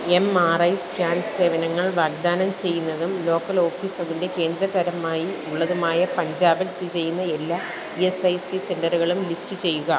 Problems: constant background noise